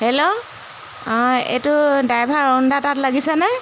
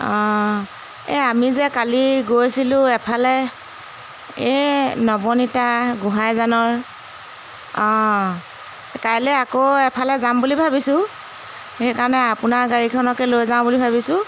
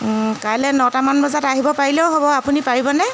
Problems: constant background noise